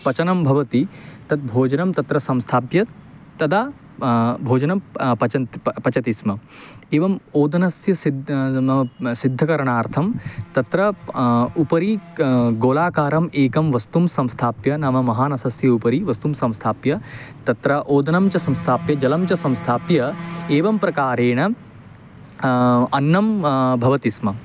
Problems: constant background noise